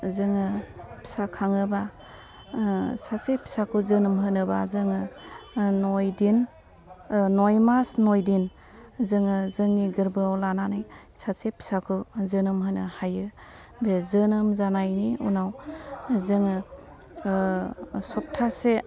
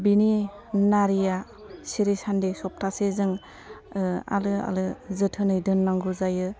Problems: low volume